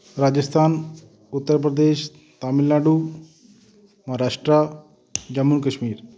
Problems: background conversations at intervals